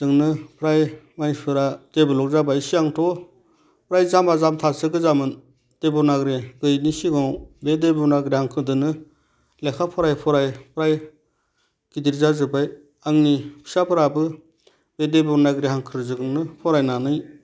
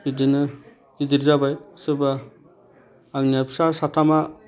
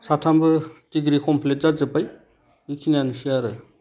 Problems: none marked